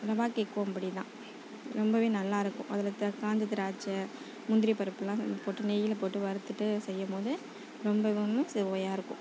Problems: low volume